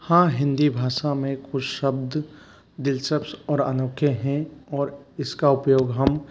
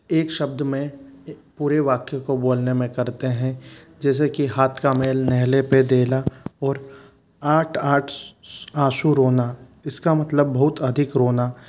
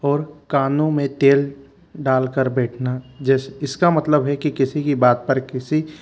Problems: constant background noise